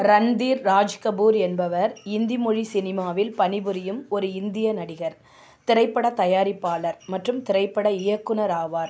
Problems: constant background noise